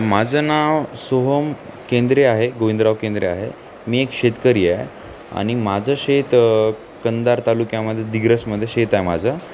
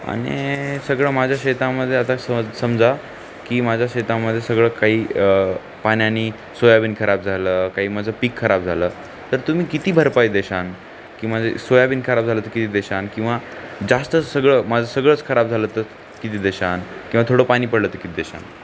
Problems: none marked